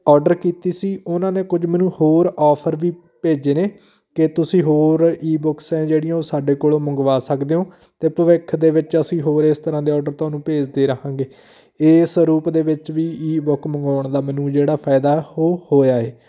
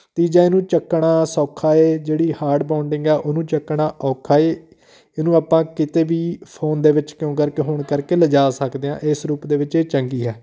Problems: background conversations at intervals